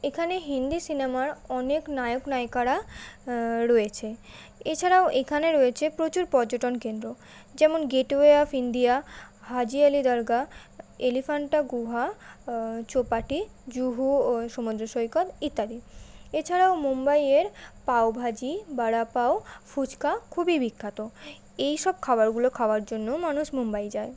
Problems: constant background noise